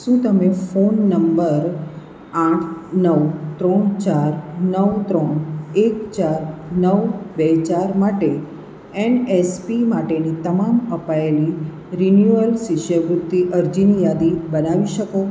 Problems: none marked